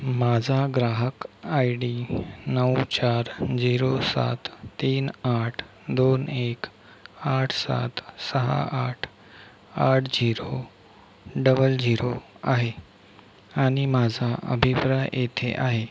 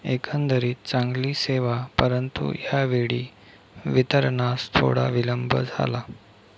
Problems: constant background noise